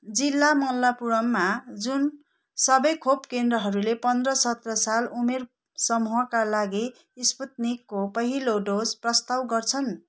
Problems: none marked